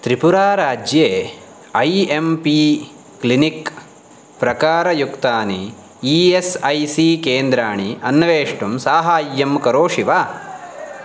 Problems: background sounds at intervals